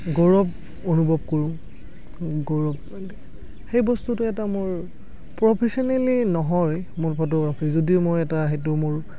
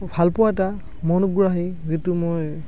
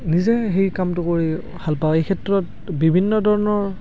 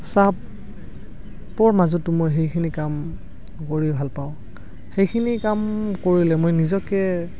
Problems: constant background noise